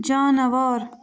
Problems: none marked